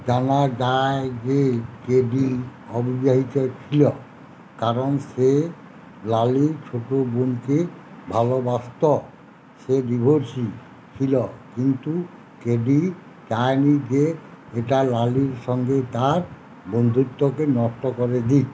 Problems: constant background noise